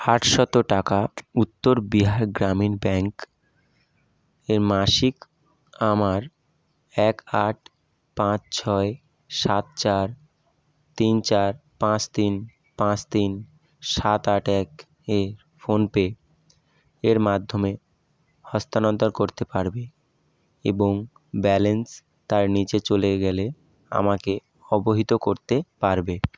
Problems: constant background noise